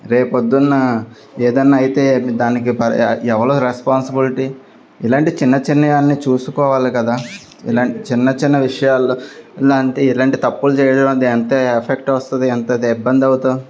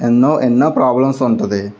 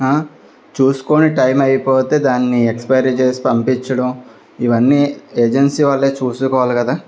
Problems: none marked